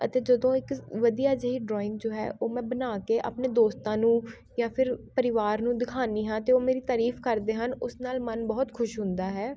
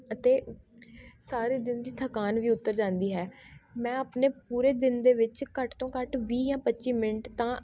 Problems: continuous background conversations